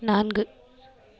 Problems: continuous background conversations